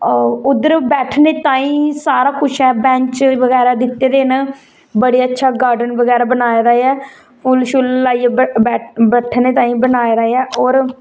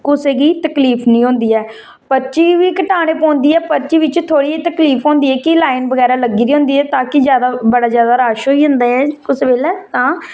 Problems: none marked